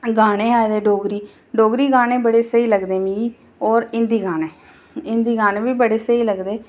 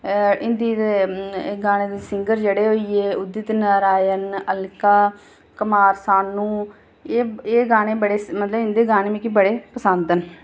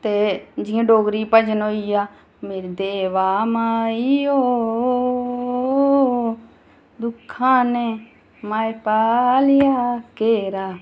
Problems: none marked